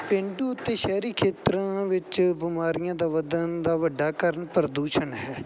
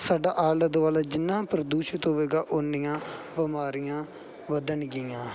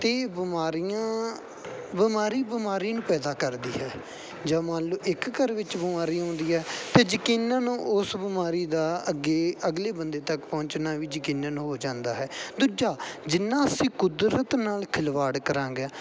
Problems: background sounds at intervals, background conversations at intervals